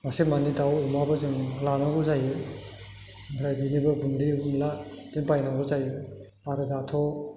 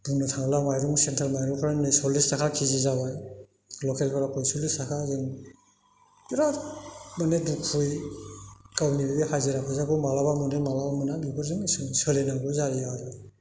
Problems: none marked